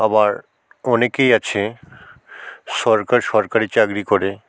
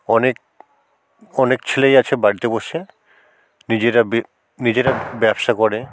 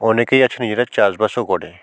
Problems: constant background noise